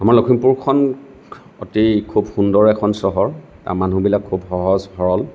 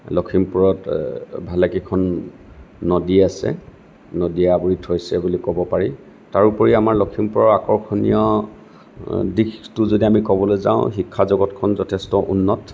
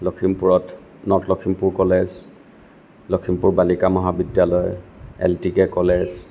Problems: none marked